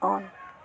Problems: background conversations at intervals